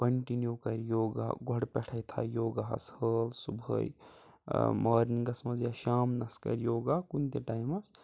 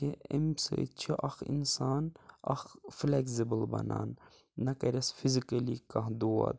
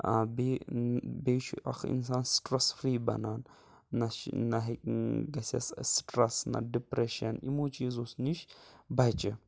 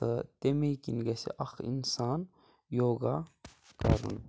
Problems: none marked